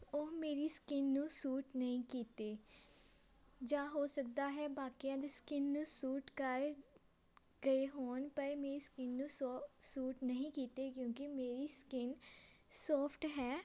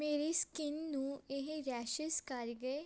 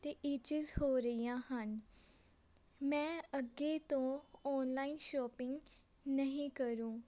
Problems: background sounds at intervals